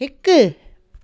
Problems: none marked